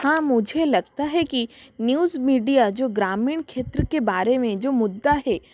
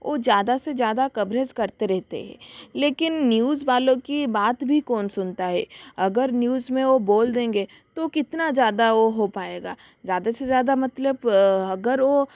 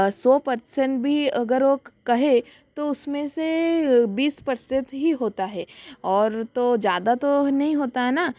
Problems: none marked